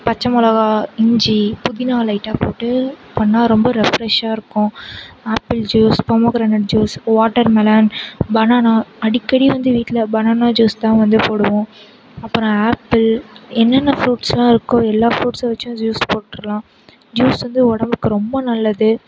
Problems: constant background noise